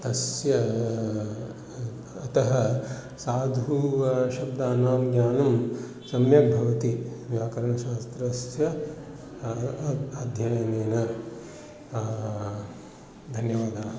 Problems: none marked